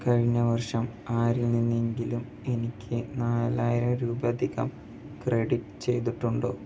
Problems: low volume